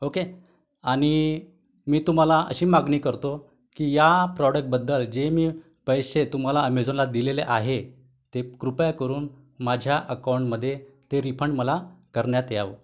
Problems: none marked